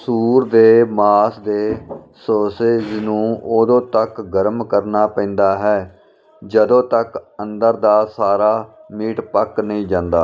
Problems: none marked